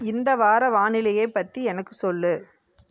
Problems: none marked